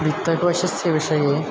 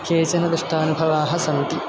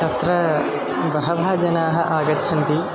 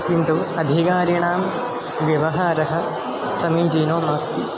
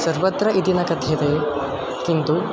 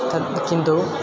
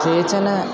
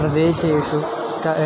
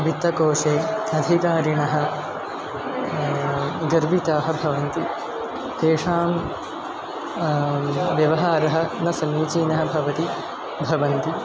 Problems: background sounds at intervals